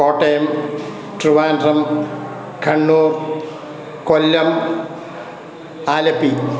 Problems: constant background noise